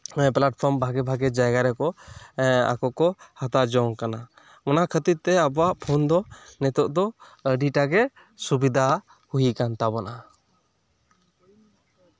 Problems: none marked